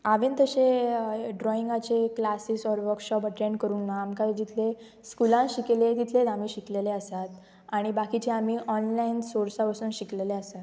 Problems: background sounds at intervals